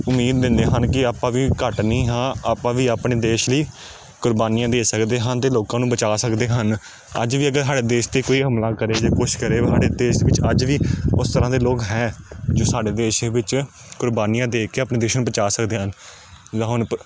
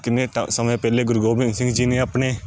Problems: constant background noise